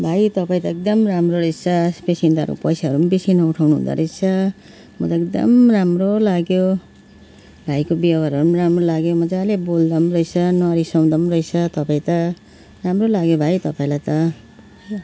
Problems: background sounds at intervals